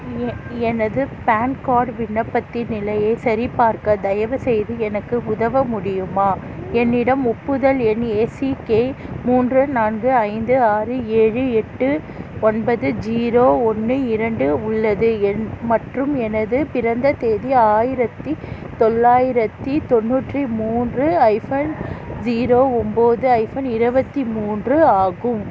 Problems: constant background noise, continuous background conversations